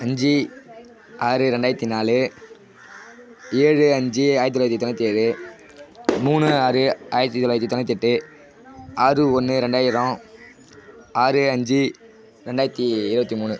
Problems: continuous background conversations